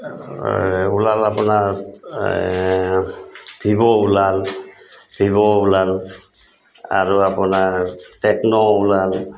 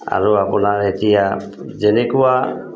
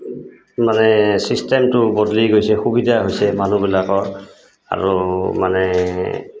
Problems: constant background noise